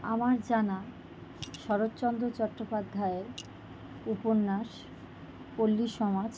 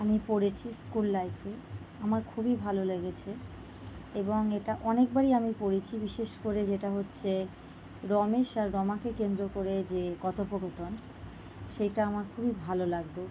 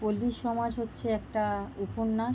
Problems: constant background noise